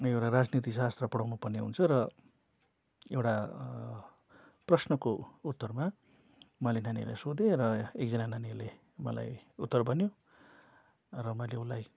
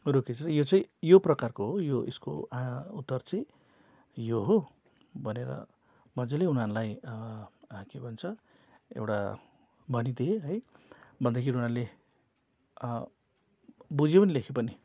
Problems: none marked